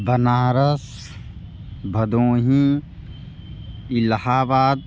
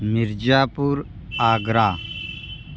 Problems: constant background noise